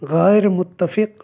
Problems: none marked